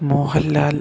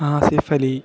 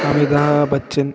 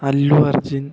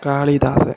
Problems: none marked